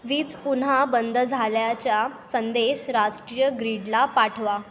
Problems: constant background noise